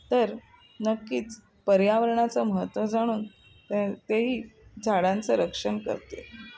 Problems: constant background noise, background conversations at intervals